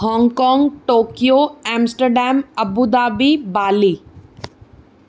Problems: none marked